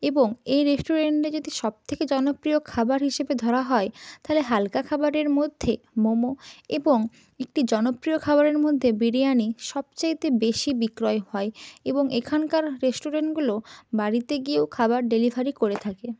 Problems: none marked